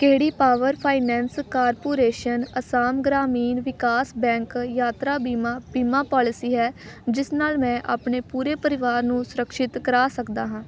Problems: background sounds at intervals